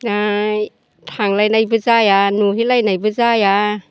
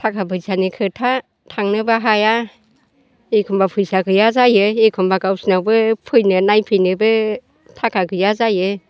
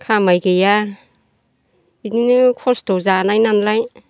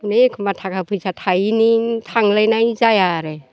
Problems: constant background noise